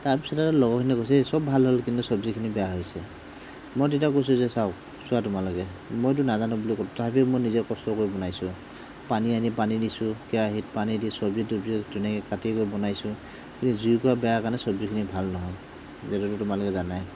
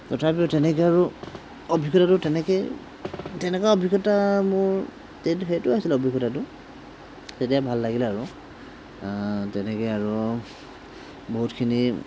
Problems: none marked